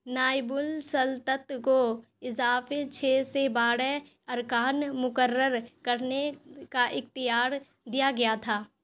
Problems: none marked